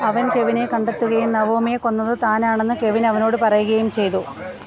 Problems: constant background noise